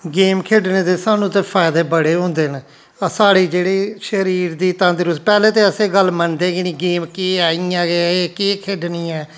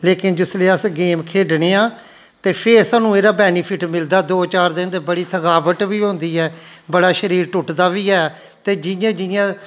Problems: constant background noise